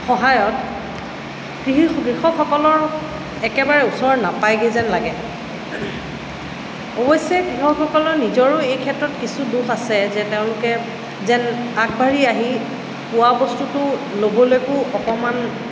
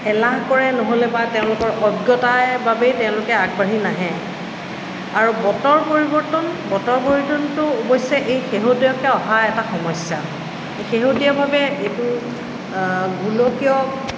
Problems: constant background noise